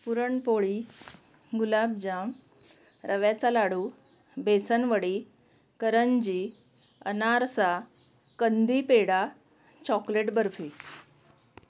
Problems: constant background noise